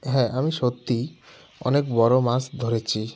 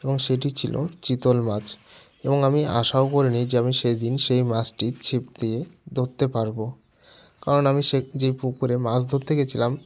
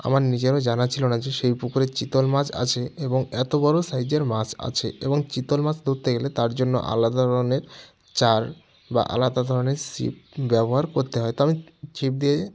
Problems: constant background noise